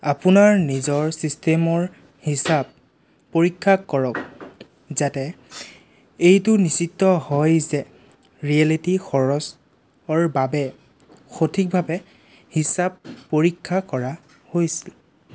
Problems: none marked